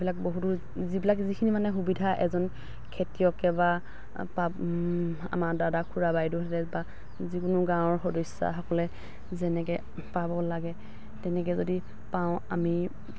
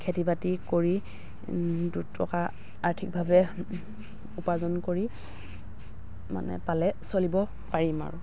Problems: none marked